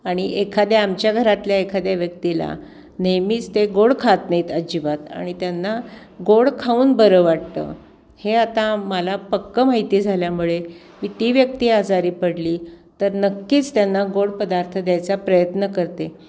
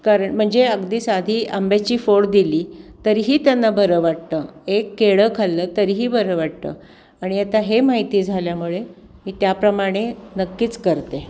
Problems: constant background noise